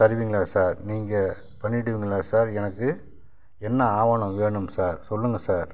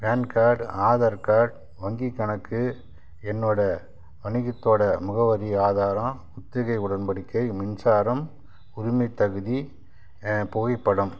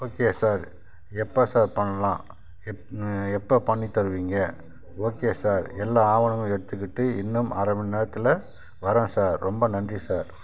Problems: background sounds at intervals